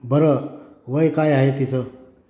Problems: constant background noise, background conversations at intervals